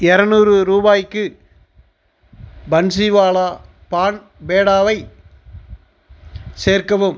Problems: none marked